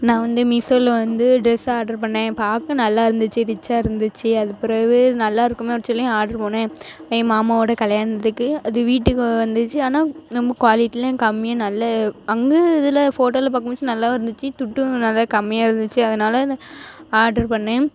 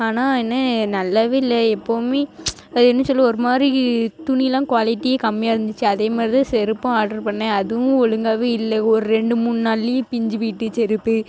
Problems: constant background noise